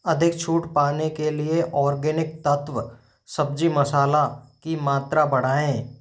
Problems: none marked